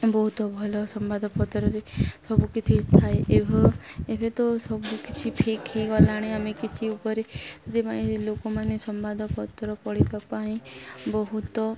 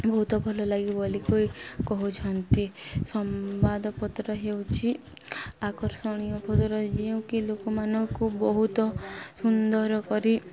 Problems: constant background noise, continuous background conversations